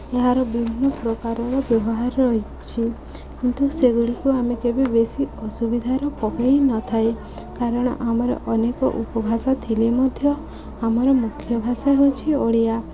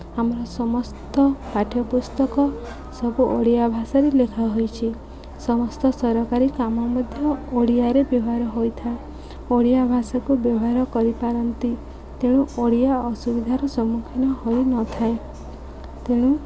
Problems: constant background noise, continuous background conversations